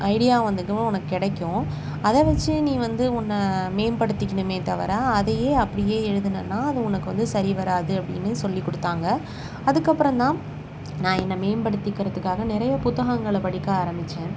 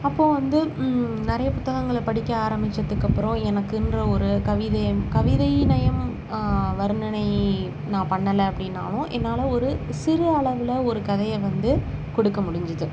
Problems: constant background noise